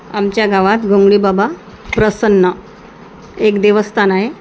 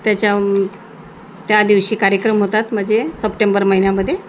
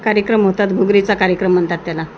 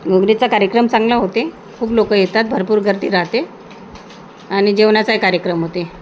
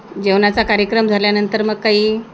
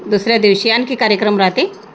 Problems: constant background noise